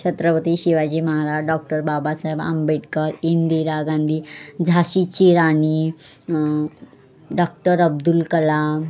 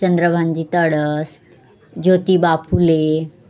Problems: background sounds at intervals